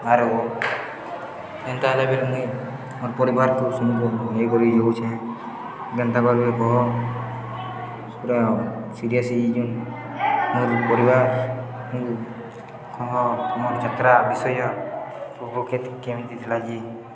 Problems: constant background noise, continuous background conversations